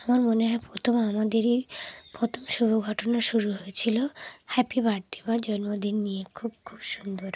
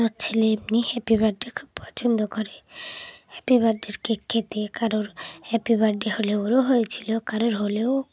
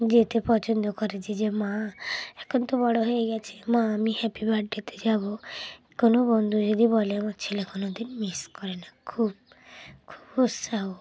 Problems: background sounds at intervals, background conversations at intervals